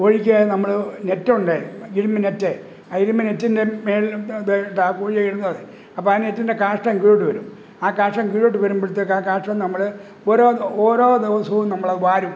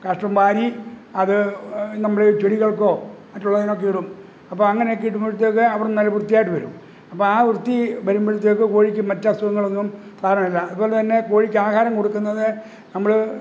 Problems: background sounds at intervals